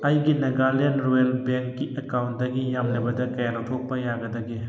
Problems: background sounds at intervals, background conversations at intervals